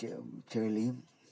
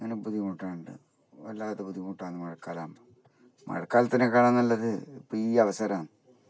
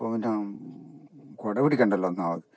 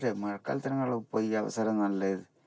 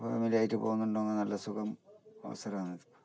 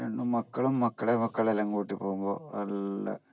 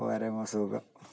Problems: background sounds at intervals, low volume